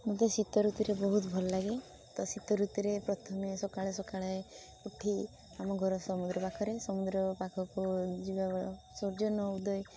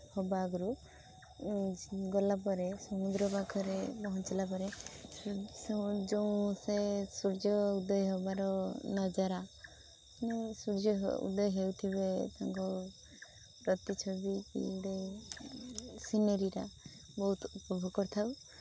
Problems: constant background noise